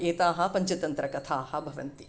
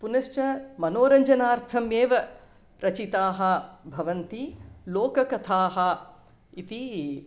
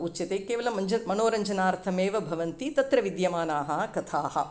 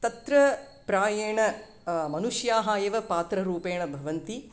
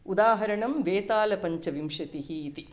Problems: none marked